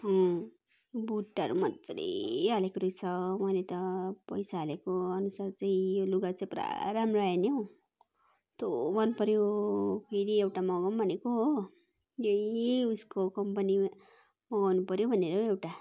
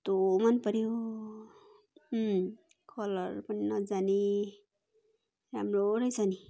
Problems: continuous background conversations